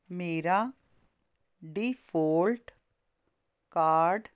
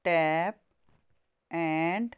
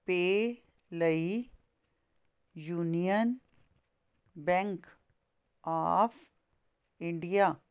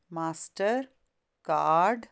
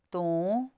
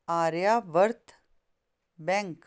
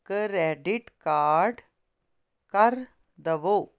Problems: constant background noise